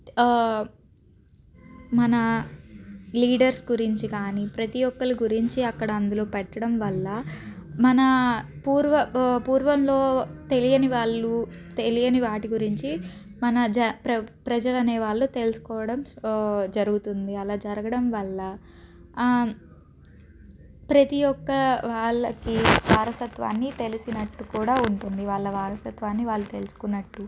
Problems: background sounds at intervals, background conversations at intervals